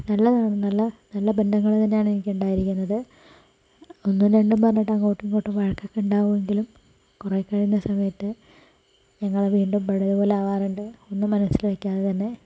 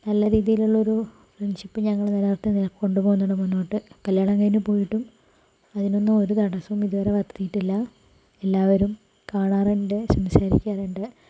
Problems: low volume